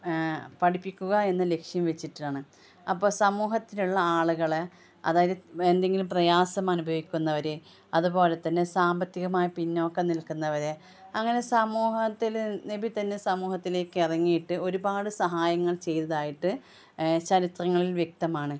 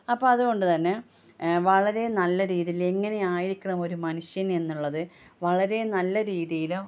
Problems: none marked